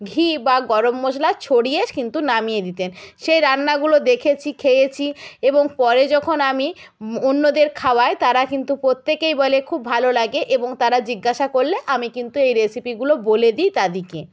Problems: none marked